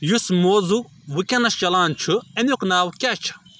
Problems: background sounds at intervals